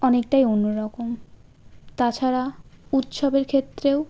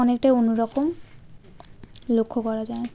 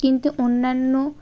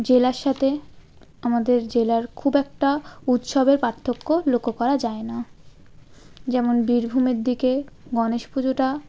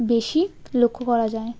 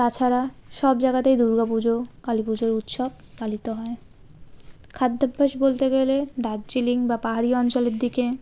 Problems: constant background noise, background conversations at intervals